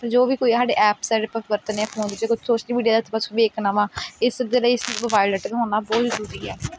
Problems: background sounds at intervals, background conversations at intervals